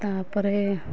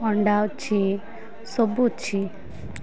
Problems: constant background noise